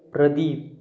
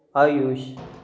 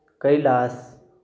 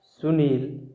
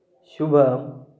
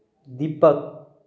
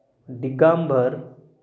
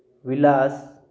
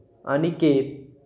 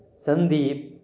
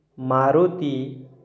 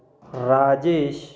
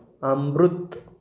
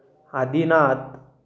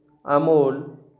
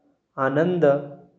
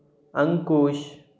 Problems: none marked